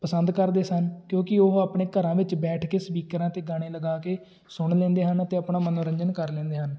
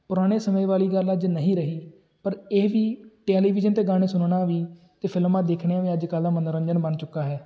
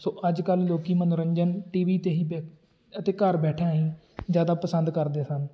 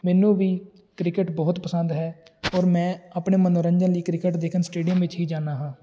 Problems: none marked